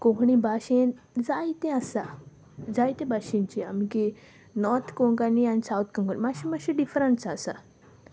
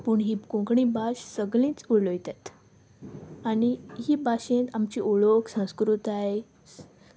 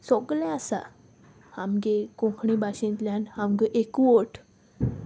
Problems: constant background noise